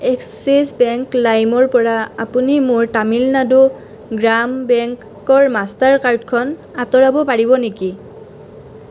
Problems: none marked